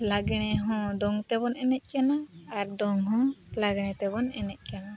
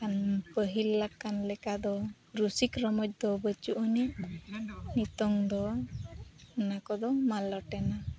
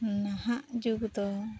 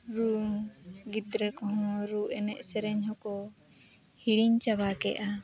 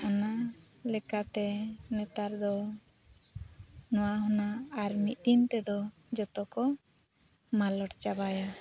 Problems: background sounds at intervals, continuous background conversations